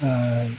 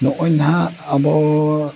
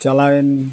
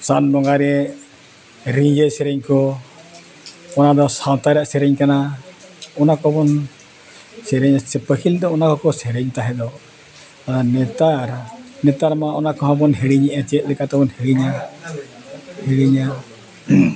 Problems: background sounds at intervals, continuous background conversations